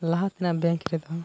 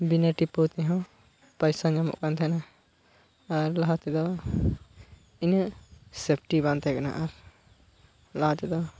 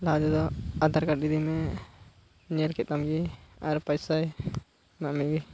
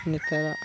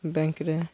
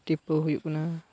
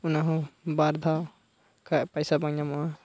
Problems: constant background noise, low volume